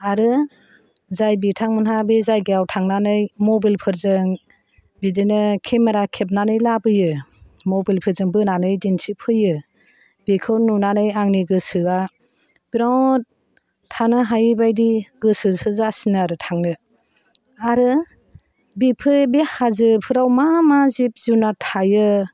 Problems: none marked